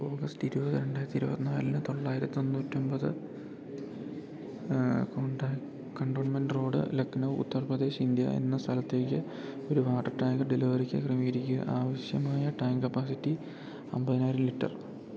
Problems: constant background noise